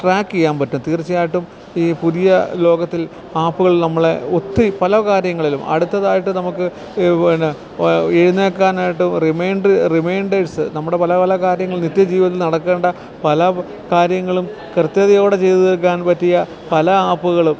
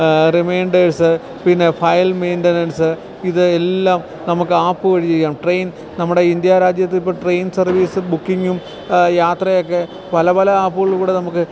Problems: background sounds at intervals